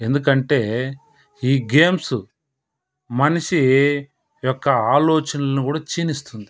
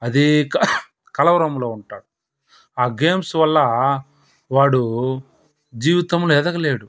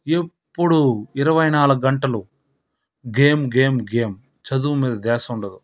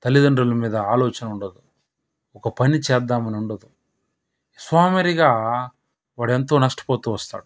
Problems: background sounds at intervals